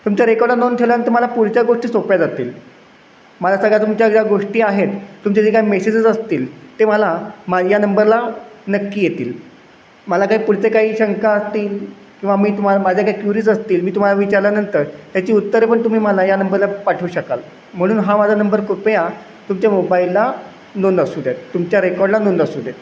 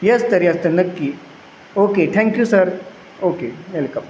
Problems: constant background noise, echo